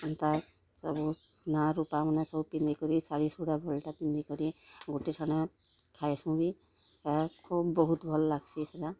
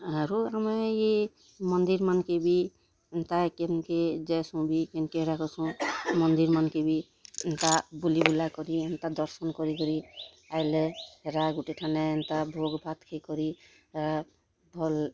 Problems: constant background noise, continuous background conversations